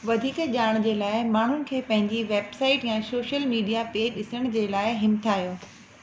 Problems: constant background noise, echo